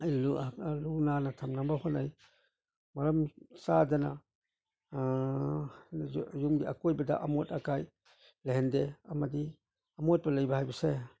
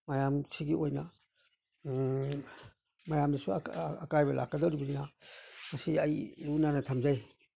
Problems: none marked